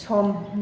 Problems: none marked